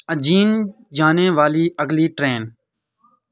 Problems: constant background noise